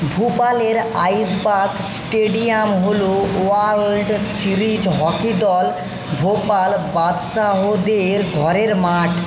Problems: constant background noise